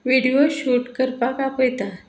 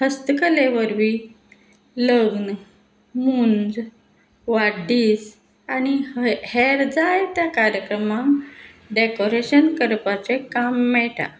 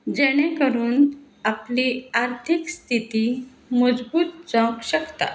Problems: constant background noise